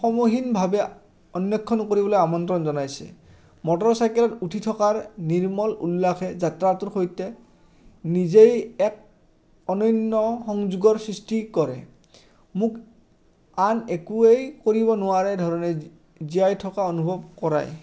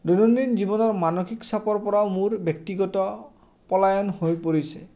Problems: constant background noise